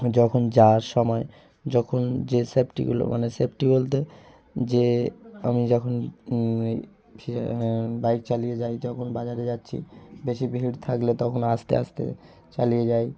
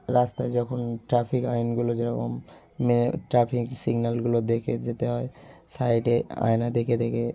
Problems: none marked